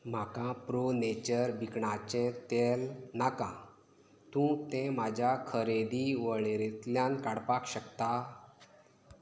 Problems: constant background noise